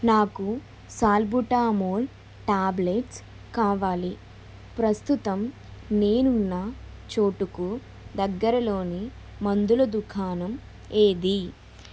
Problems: constant background noise